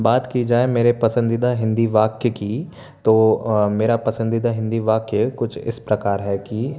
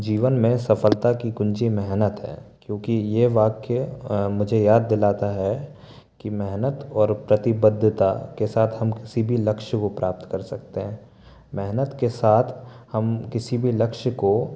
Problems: none marked